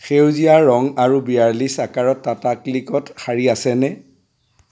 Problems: constant background noise